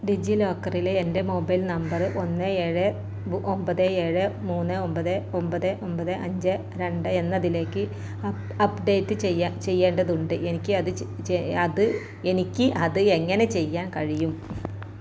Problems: none marked